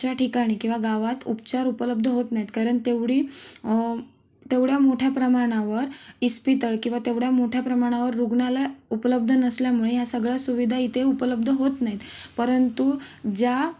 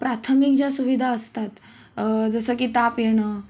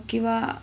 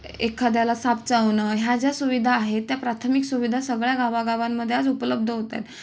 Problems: none marked